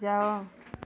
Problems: low volume